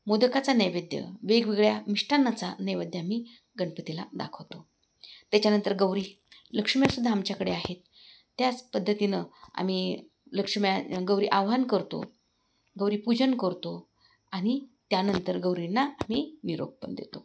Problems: none marked